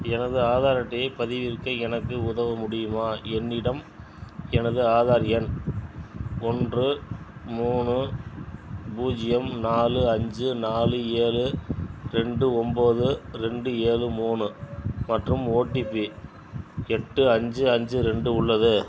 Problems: background sounds at intervals